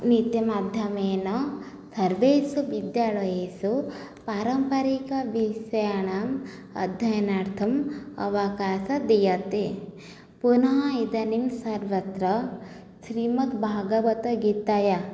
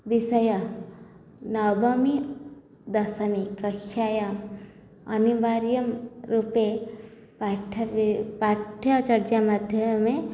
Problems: low volume